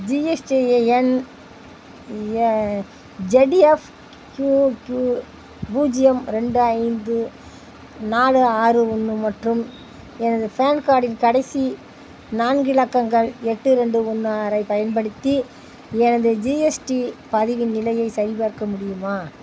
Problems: constant background noise